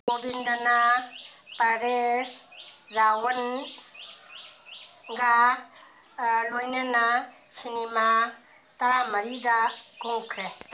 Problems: background sounds at intervals